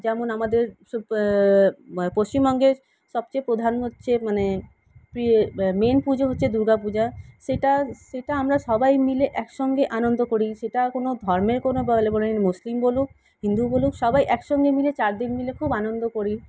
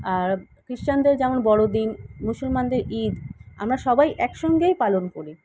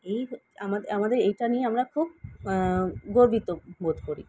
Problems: background sounds at intervals